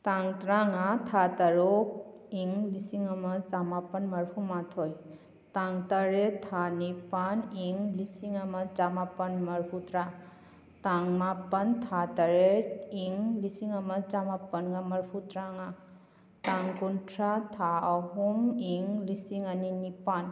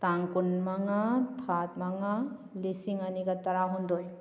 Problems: none marked